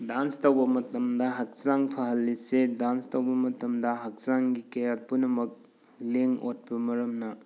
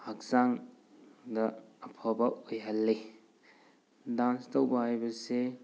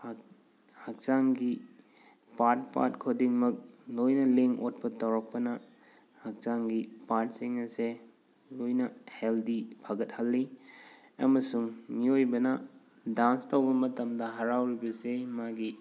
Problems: background sounds at intervals